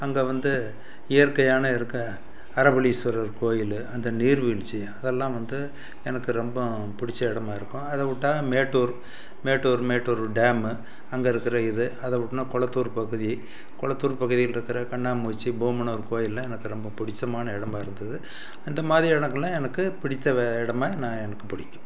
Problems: background sounds at intervals